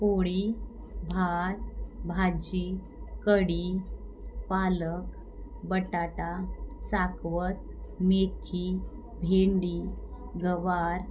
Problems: background sounds at intervals